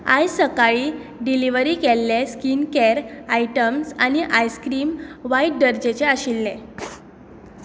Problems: background sounds at intervals